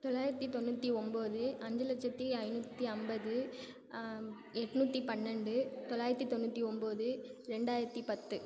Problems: constant background noise